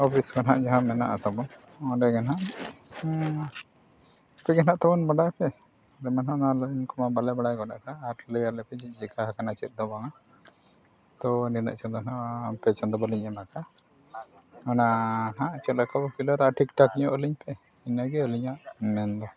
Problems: background sounds at intervals, background conversations at intervals